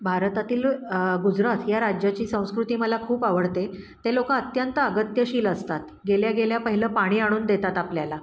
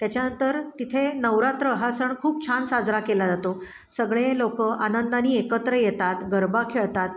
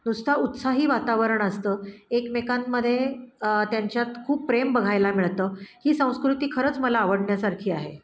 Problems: none marked